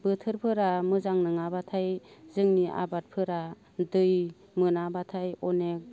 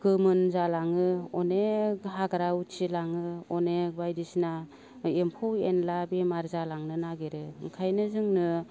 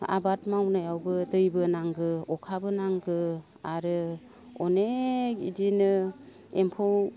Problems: low volume